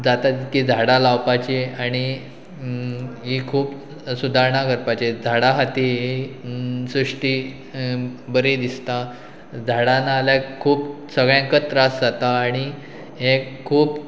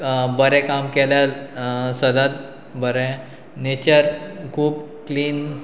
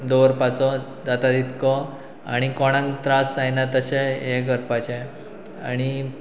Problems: background sounds at intervals